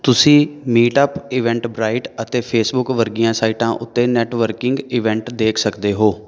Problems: background sounds at intervals